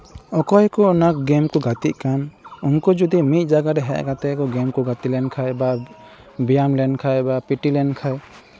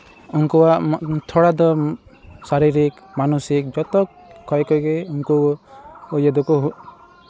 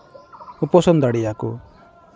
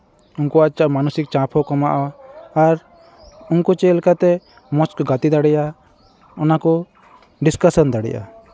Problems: background sounds at intervals